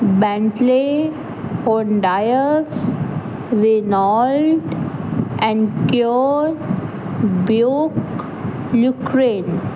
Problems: constant background noise